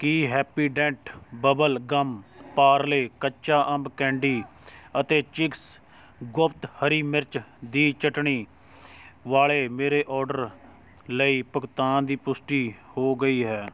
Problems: constant background noise, continuous background conversations